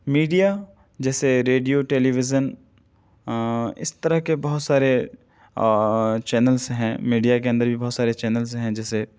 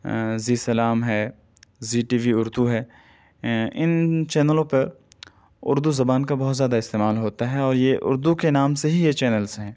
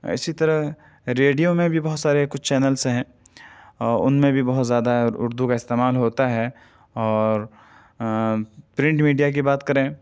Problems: none marked